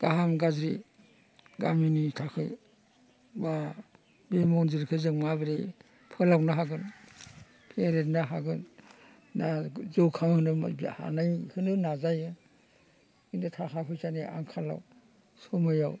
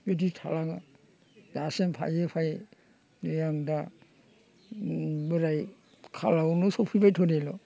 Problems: constant background noise